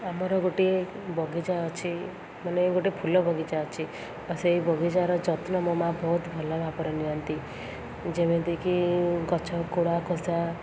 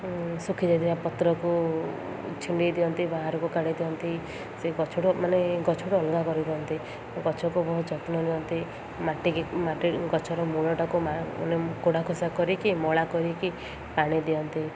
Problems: constant background noise